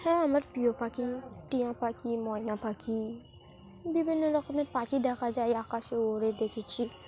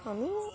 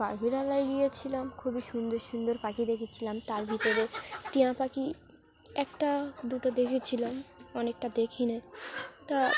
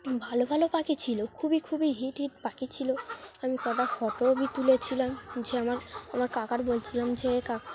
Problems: constant background noise